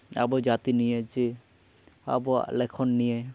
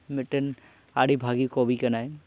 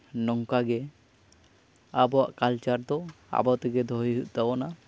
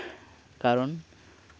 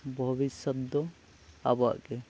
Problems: constant background noise